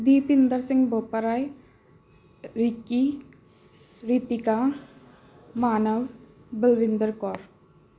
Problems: background sounds at intervals